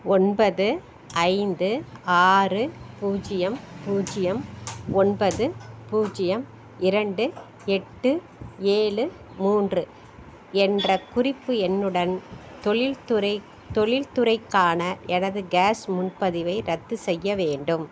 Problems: background sounds at intervals